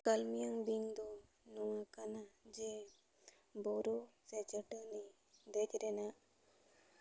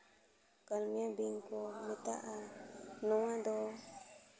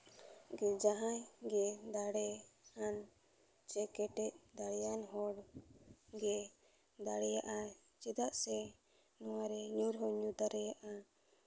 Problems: none marked